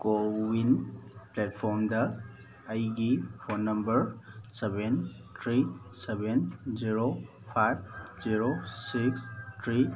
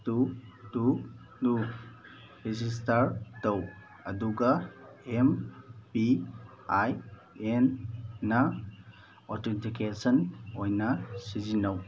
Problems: background sounds at intervals